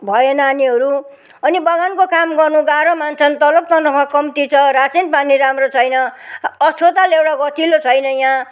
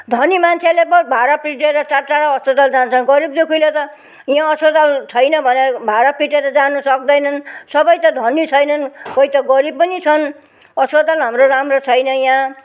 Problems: none marked